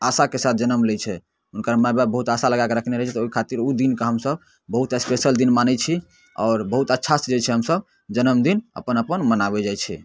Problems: none marked